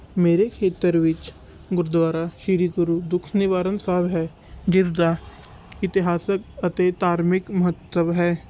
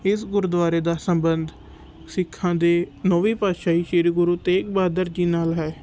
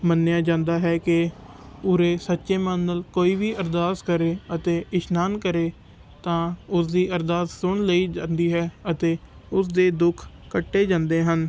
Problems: none marked